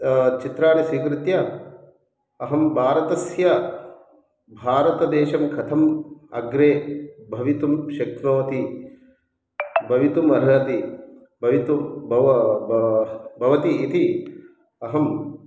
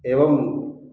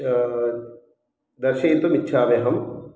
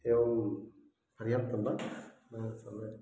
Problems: background conversations at intervals